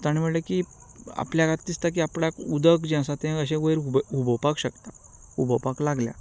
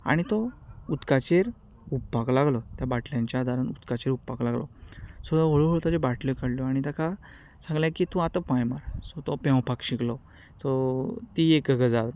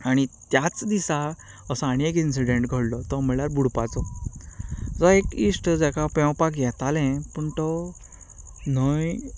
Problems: background conversations at intervals